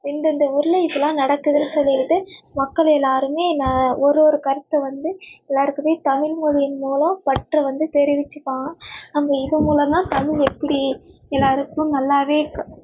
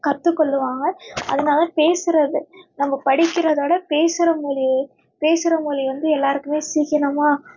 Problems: none marked